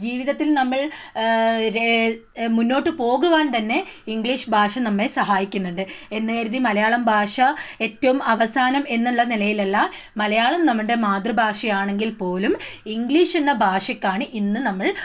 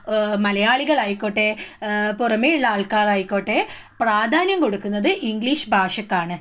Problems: none marked